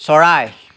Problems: constant background noise